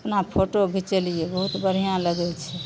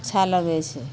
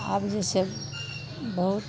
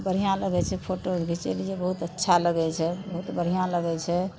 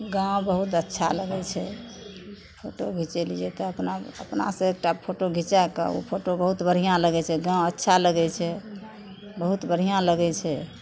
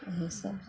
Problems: continuous background conversations